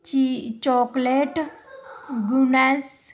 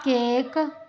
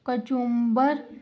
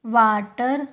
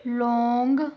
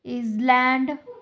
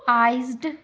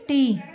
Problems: continuous background conversations